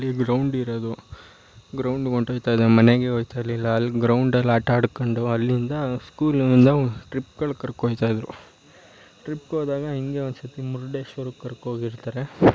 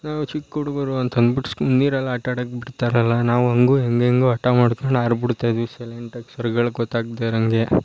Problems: none marked